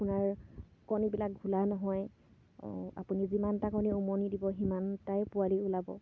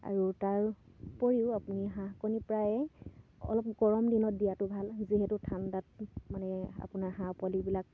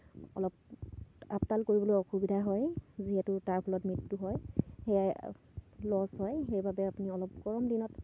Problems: constant background noise